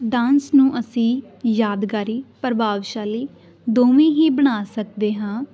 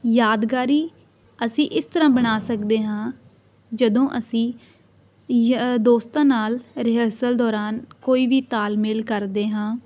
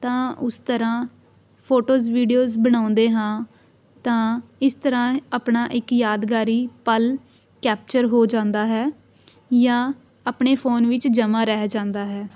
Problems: none marked